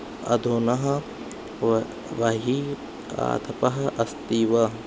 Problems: none marked